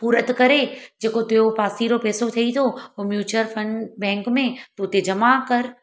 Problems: none marked